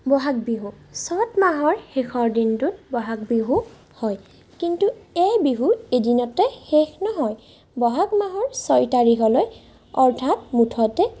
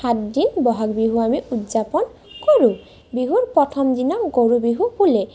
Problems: none marked